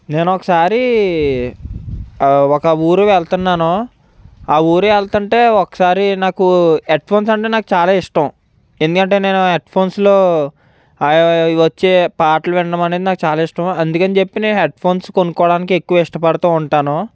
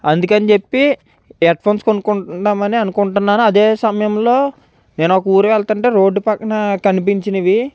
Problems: none marked